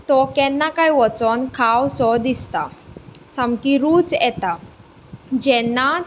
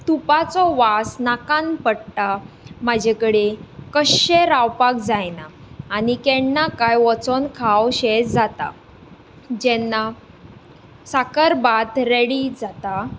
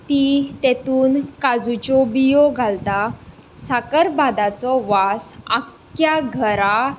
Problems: background conversations at intervals